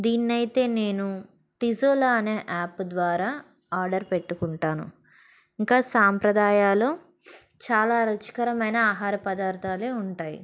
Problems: background sounds at intervals